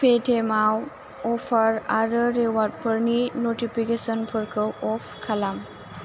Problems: constant background noise